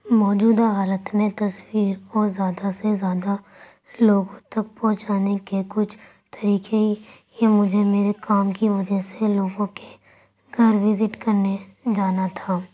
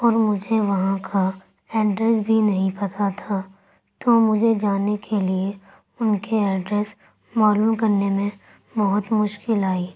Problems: none marked